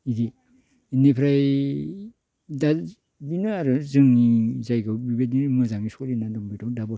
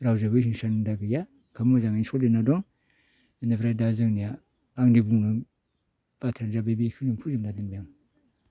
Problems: none marked